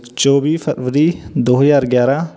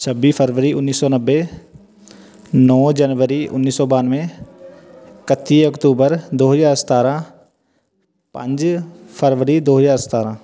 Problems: background conversations at intervals